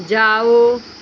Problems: constant background noise